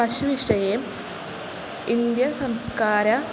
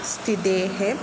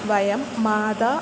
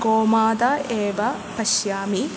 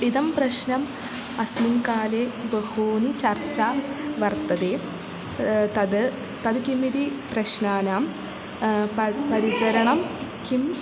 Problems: none marked